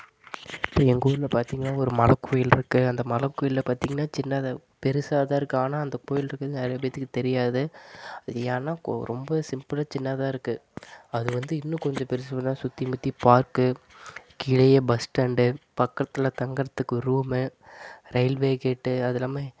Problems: constant background noise